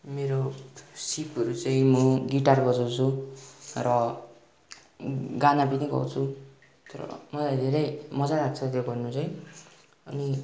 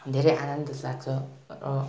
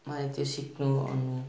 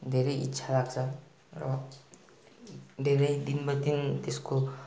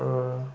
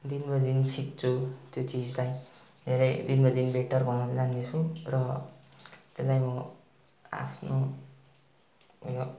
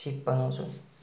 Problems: none marked